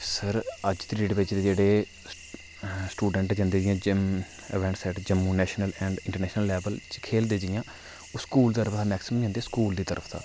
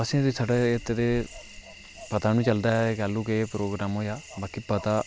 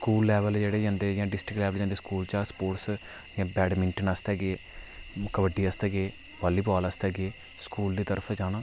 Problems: none marked